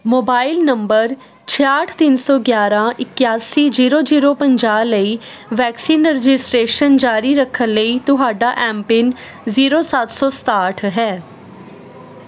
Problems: constant background noise